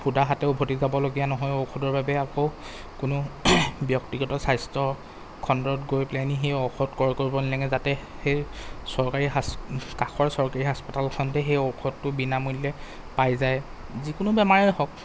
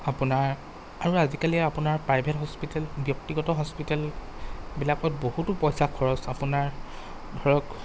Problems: constant background noise